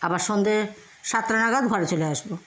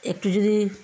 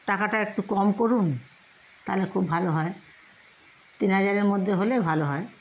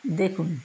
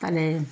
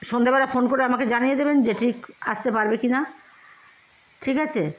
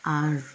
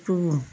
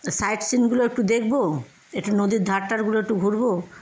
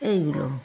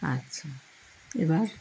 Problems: none marked